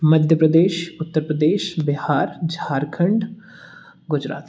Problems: background sounds at intervals